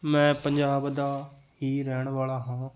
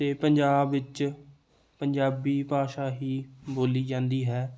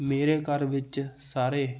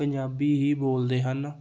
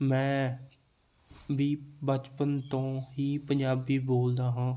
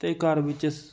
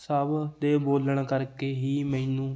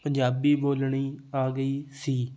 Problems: none marked